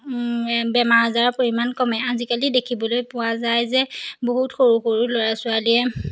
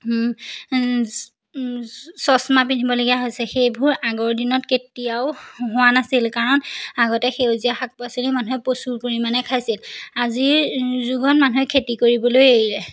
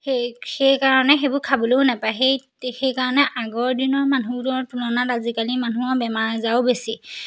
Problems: background sounds at intervals